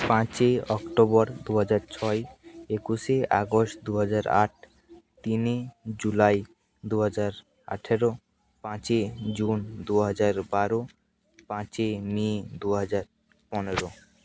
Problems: constant background noise